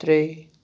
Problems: none marked